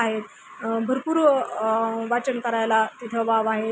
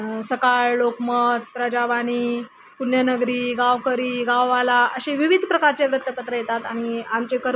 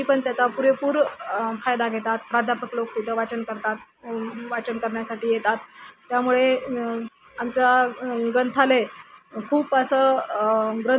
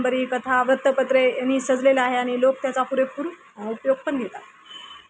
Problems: constant background noise